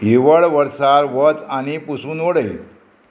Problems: constant background noise